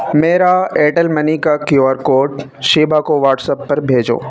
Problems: constant background noise